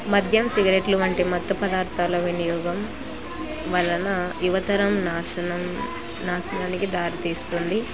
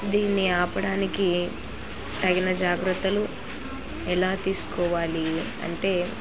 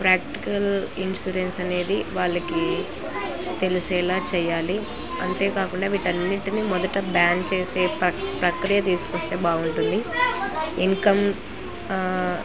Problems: constant background noise